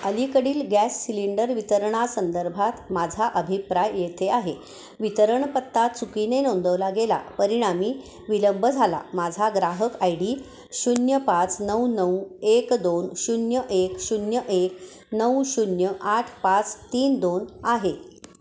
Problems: constant background noise, echo